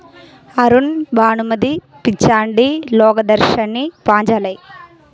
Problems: continuous background conversations